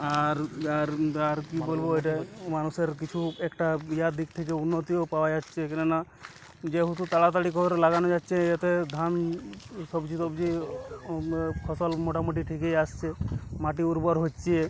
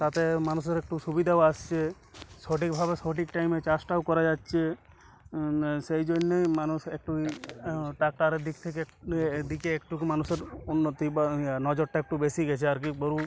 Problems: constant background noise, continuous background conversations